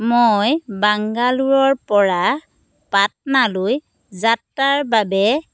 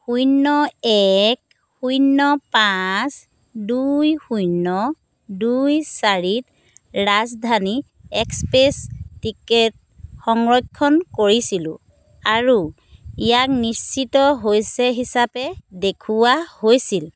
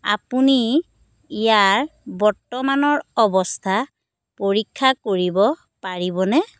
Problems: none marked